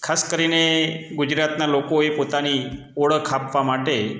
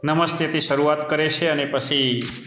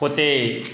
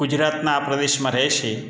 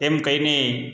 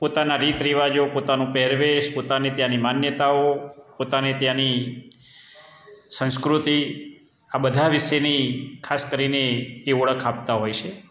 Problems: constant background noise